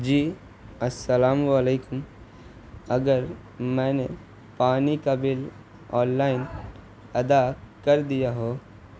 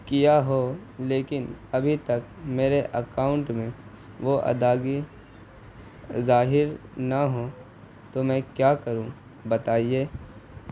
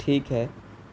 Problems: constant background noise